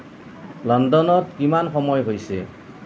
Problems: constant background noise